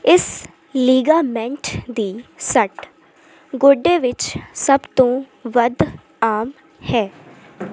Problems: constant background noise